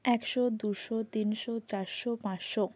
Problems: constant background noise